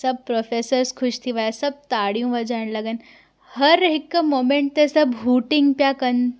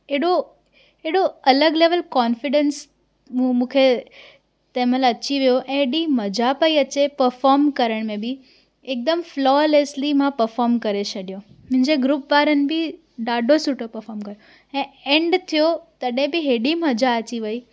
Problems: none marked